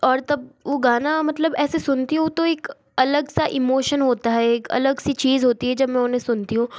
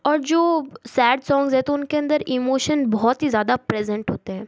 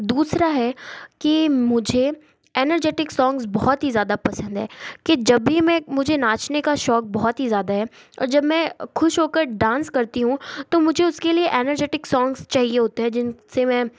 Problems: none marked